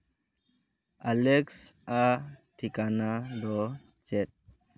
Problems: background sounds at intervals